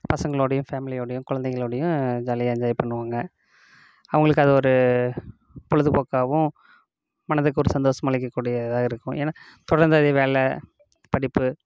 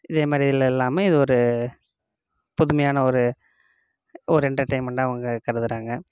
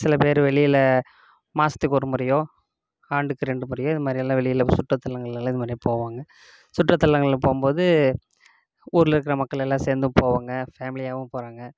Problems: none marked